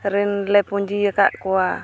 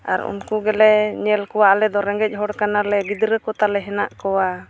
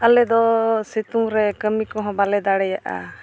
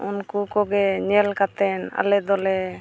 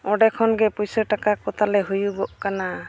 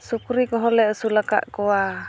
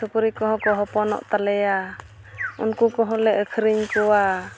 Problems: background sounds at intervals, background conversations at intervals